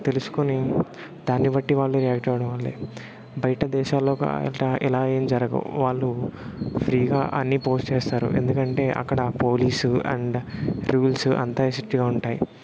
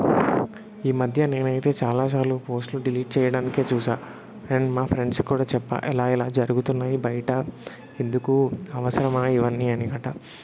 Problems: constant background noise